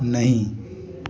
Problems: constant background noise, continuous background conversations